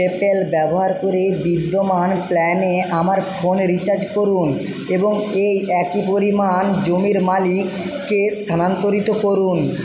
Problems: constant background noise